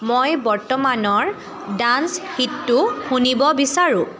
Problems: continuous background conversations